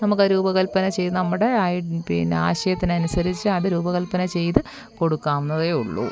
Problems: constant background noise